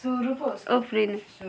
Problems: constant background noise, continuous background conversations